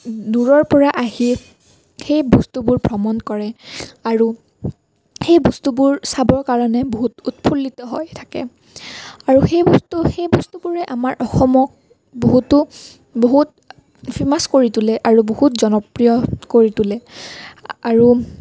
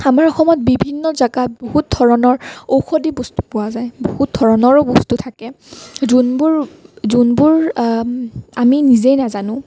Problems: none marked